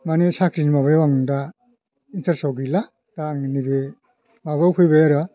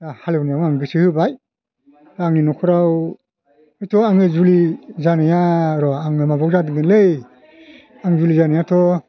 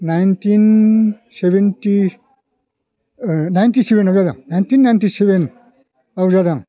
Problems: none marked